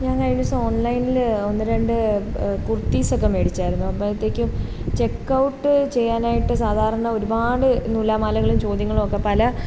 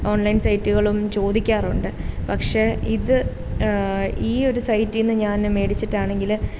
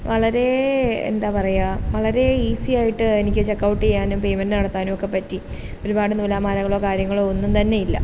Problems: constant background noise